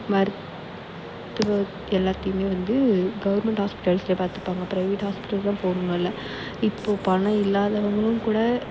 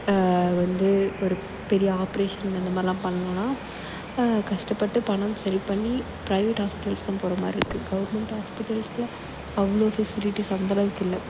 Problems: background sounds at intervals